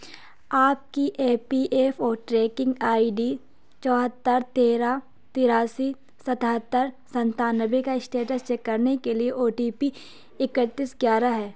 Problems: background sounds at intervals